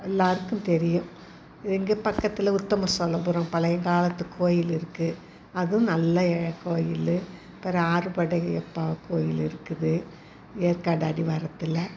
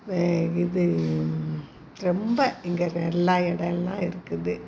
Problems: constant background noise, background conversations at intervals